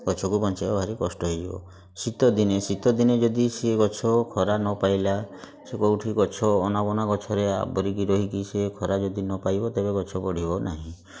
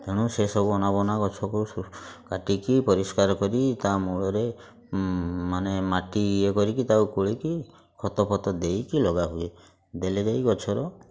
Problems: constant background noise, continuous background conversations